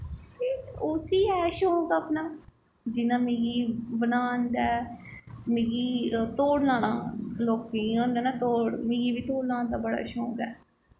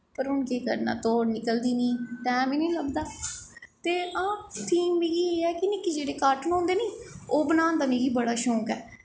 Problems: background sounds at intervals, echo